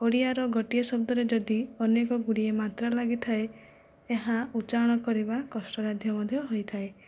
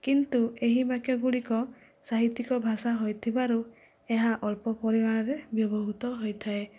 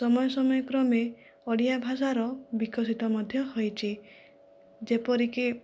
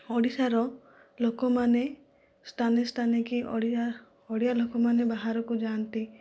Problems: low volume